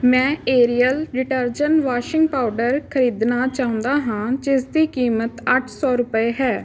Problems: constant background noise